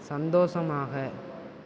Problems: none marked